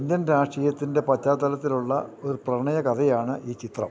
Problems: constant background noise, low volume